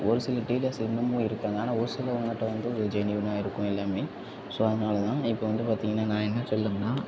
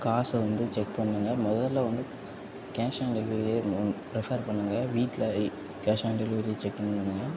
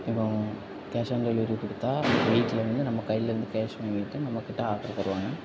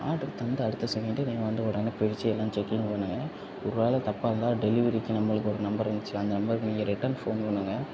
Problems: background sounds at intervals, low volume